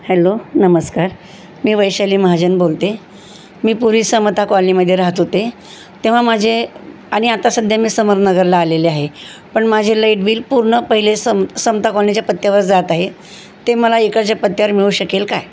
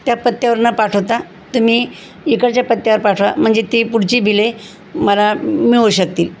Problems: constant background noise